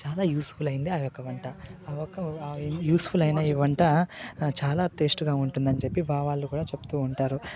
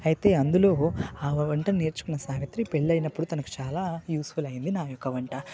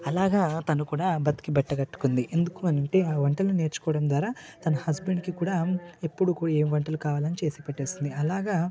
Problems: background conversations at intervals